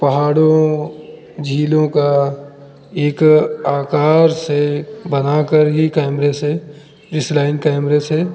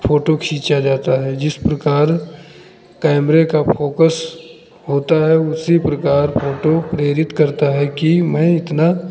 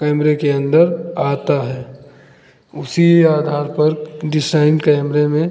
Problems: none marked